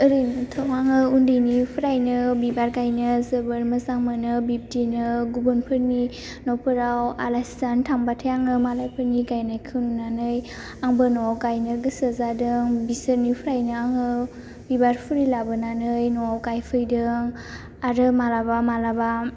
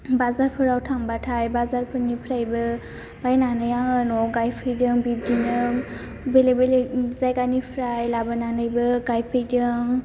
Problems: none marked